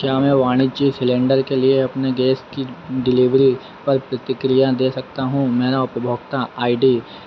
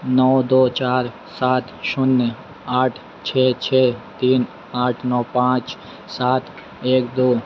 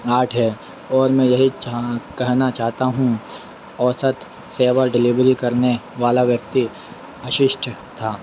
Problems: none marked